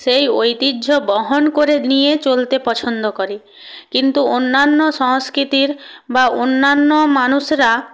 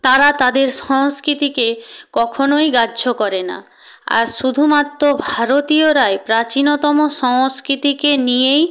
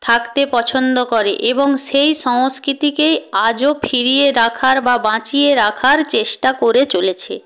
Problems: none marked